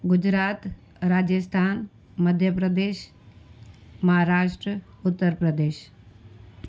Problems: constant background noise